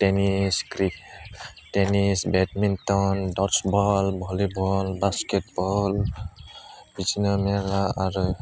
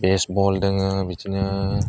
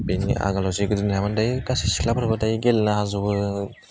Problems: constant background noise